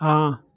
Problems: constant background noise